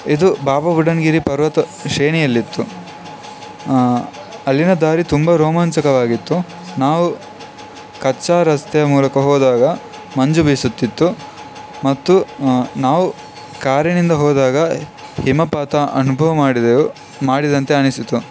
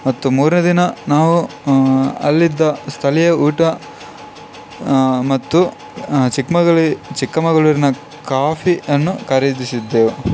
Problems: constant background noise